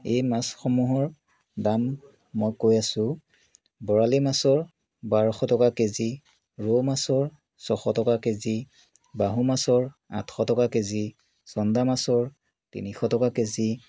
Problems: background sounds at intervals